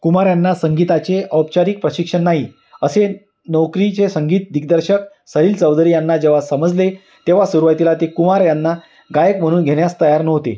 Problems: background sounds at intervals